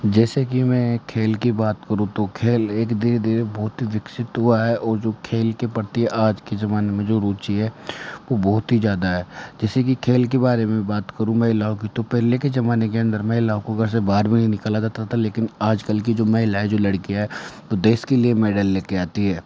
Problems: none marked